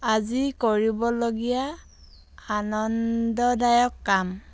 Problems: constant background noise